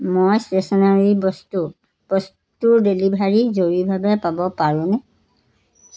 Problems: constant background noise